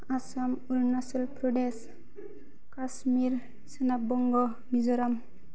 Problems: none marked